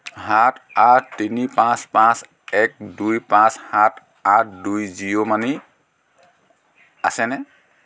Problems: none marked